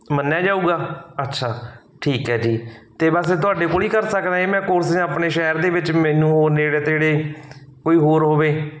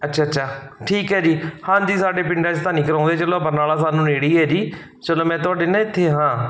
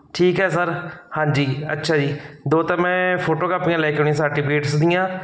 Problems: none marked